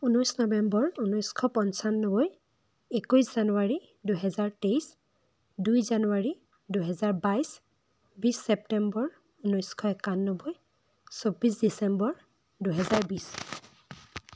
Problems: constant background noise